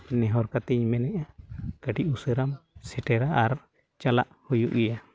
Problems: background sounds at intervals